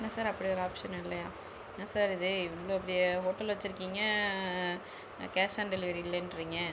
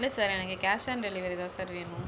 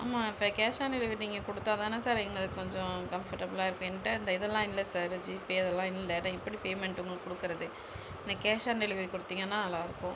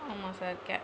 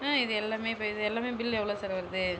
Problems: constant background noise